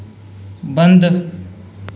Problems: echo